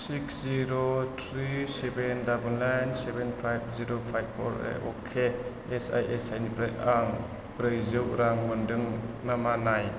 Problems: low volume